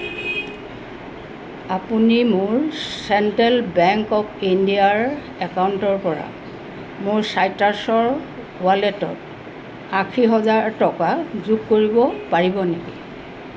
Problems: constant background noise